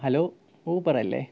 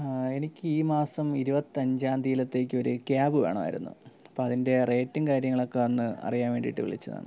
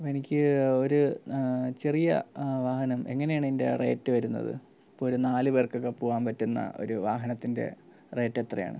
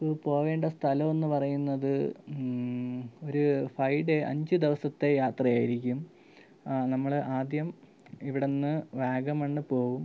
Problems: low volume